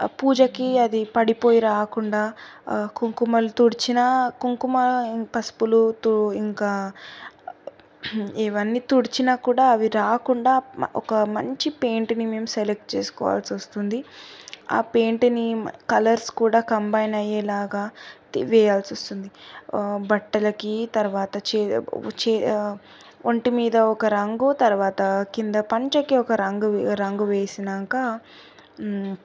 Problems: none marked